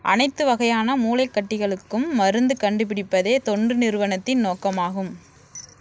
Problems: background sounds at intervals